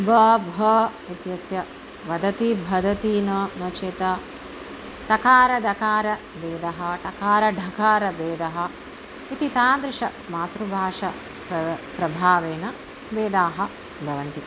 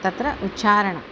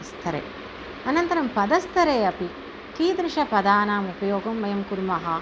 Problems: constant background noise